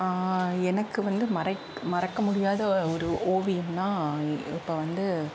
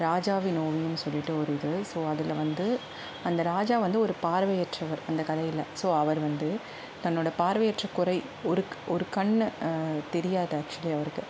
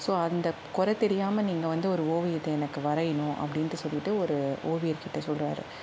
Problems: constant background noise